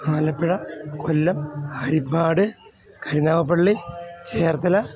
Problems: constant background noise